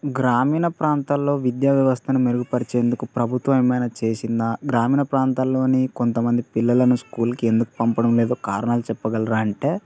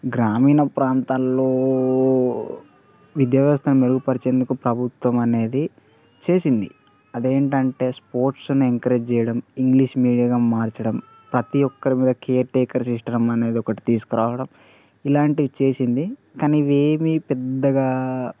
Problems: background conversations at intervals